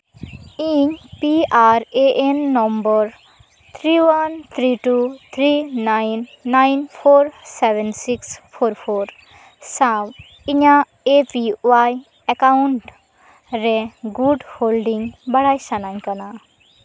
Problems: none marked